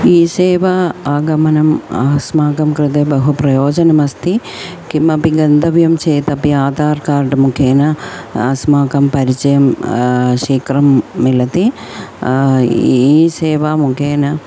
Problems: constant background noise, continuous background conversations